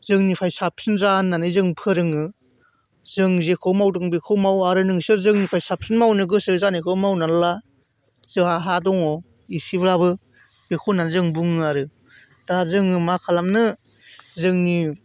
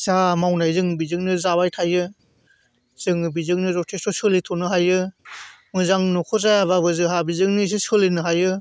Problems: none marked